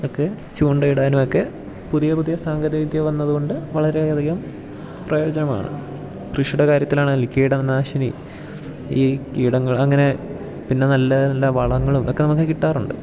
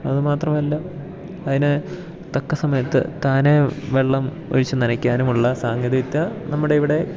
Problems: background sounds at intervals